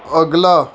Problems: background sounds at intervals